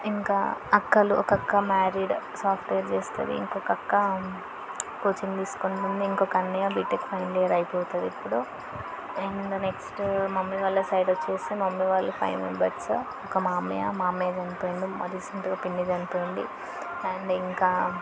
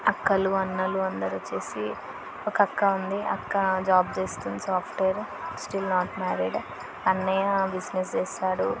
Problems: constant background noise, background conversations at intervals